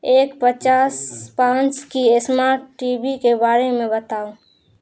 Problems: none marked